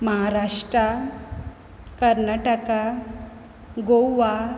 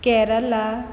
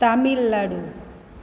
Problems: constant background noise